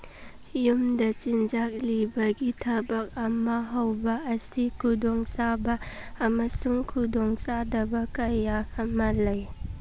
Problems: background sounds at intervals